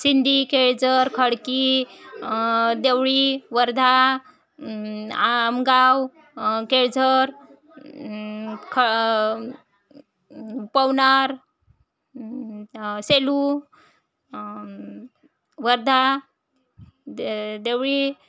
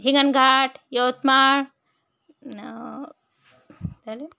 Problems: none marked